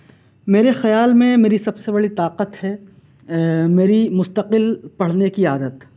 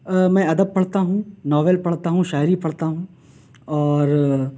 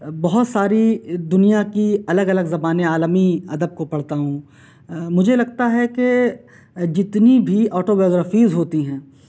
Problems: none marked